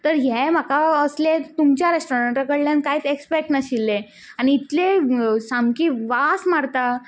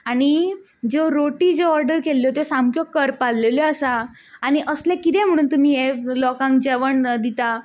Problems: background sounds at intervals